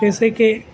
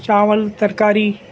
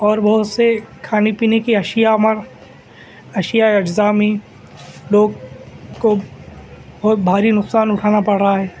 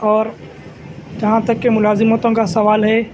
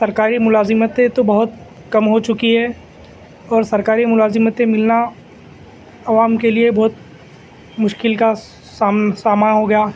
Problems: constant background noise, continuous background conversations